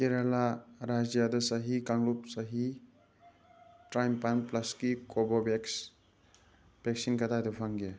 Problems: background sounds at intervals